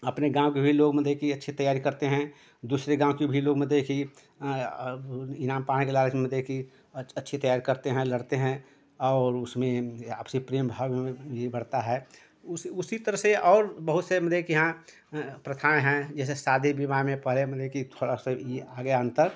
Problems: background sounds at intervals